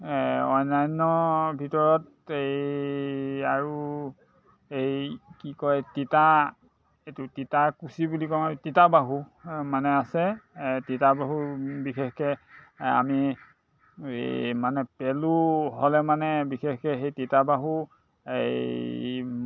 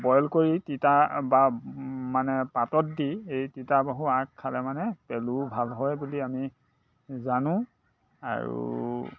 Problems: constant background noise, background conversations at intervals